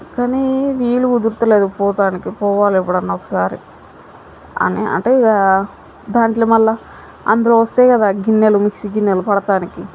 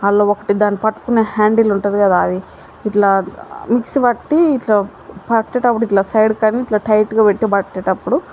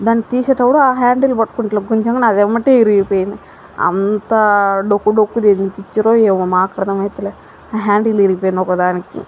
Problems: background sounds at intervals